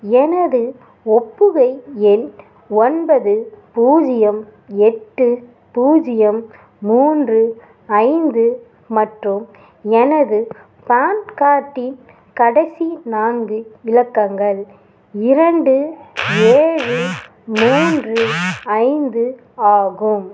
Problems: background sounds at intervals